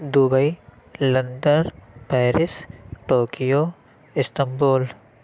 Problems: none marked